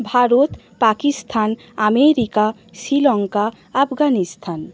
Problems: constant background noise